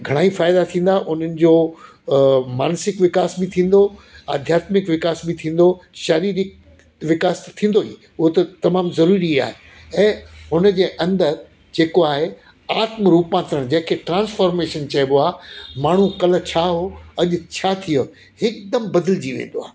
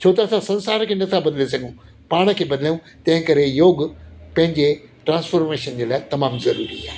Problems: constant background noise